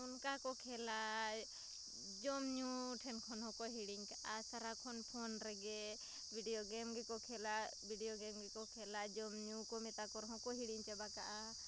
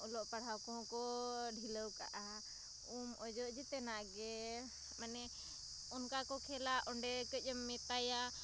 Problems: none marked